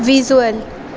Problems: constant background noise